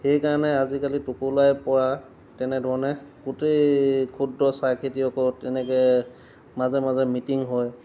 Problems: background sounds at intervals